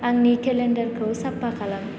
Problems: constant background noise